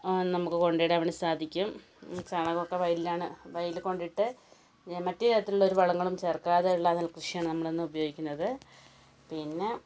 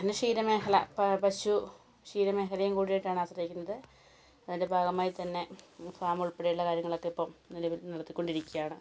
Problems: none marked